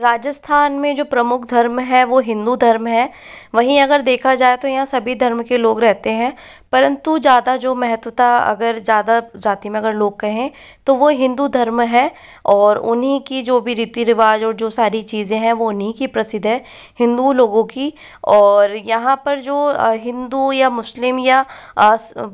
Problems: background sounds at intervals